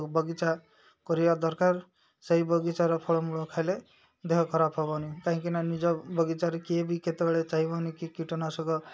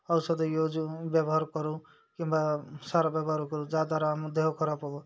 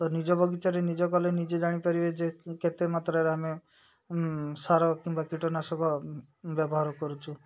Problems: background sounds at intervals, background conversations at intervals